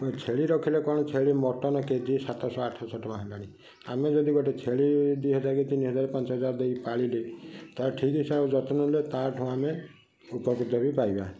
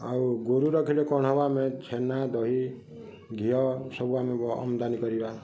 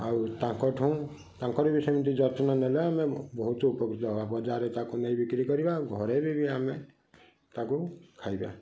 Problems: none marked